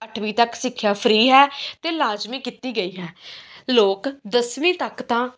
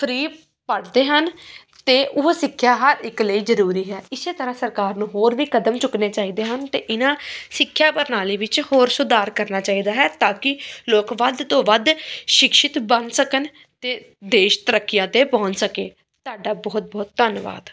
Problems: none marked